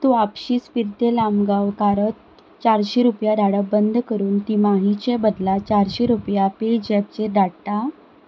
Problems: none marked